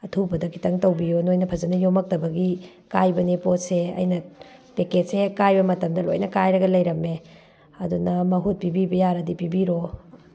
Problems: background sounds at intervals